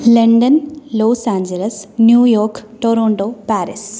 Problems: none marked